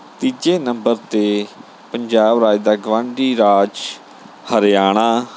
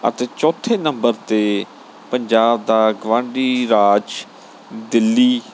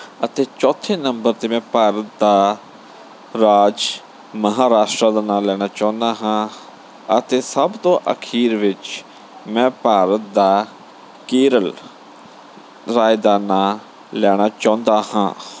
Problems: none marked